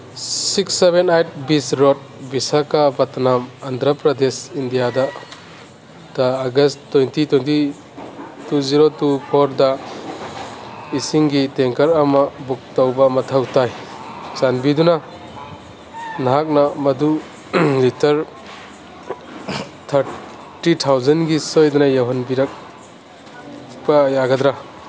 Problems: background sounds at intervals